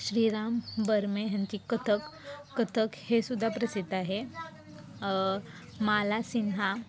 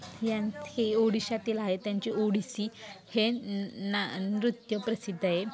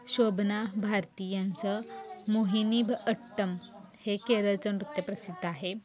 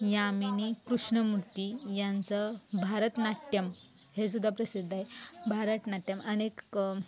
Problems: constant background noise, continuous background conversations